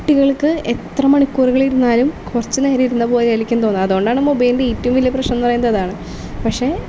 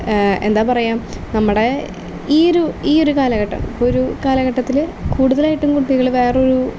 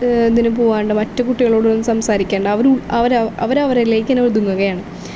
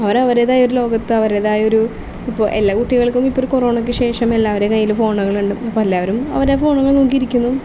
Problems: constant background noise